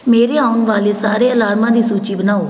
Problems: background sounds at intervals